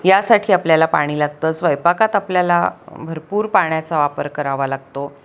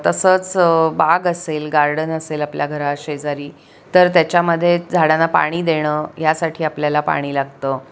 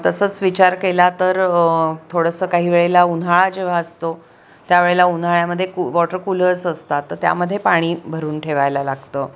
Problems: none marked